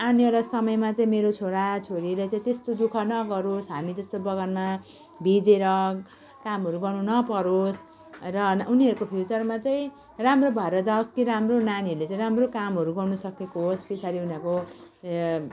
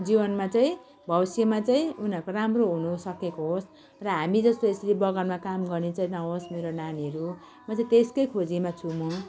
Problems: continuous background conversations